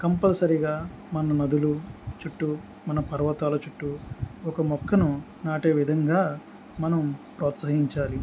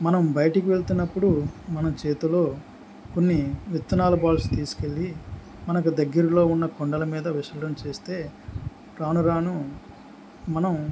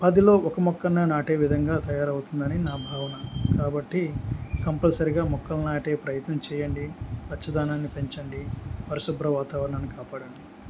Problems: background sounds at intervals